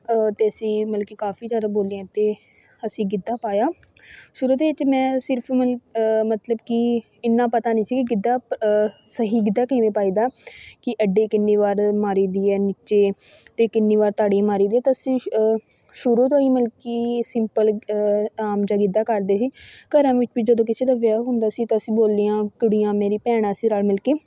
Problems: background sounds at intervals, continuous background conversations